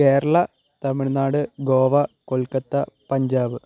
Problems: constant background noise, low volume